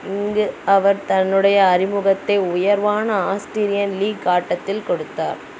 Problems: background sounds at intervals